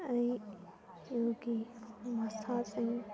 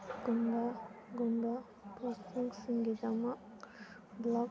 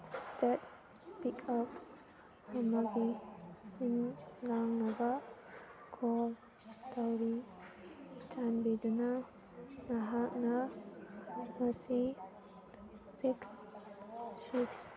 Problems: continuous background conversations, low volume